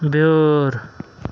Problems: none marked